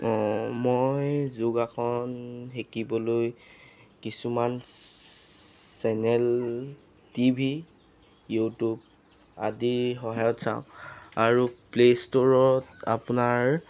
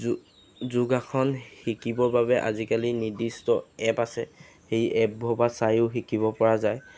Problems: none marked